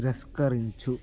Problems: constant background noise